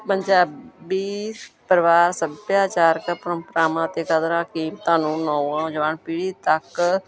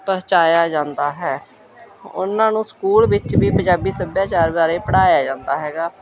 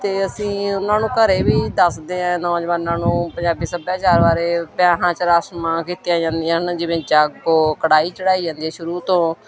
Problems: continuous background conversations